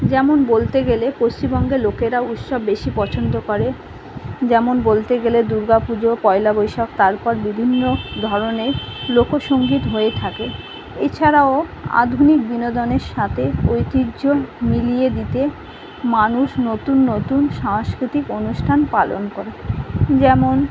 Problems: constant background noise